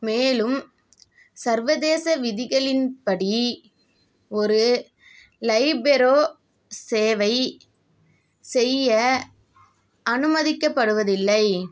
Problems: none marked